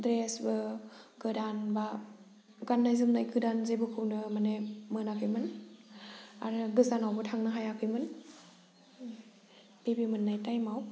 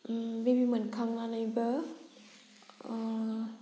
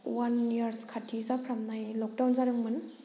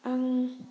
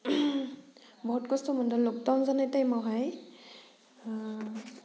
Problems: low volume